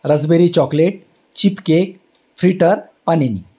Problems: none marked